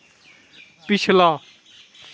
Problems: none marked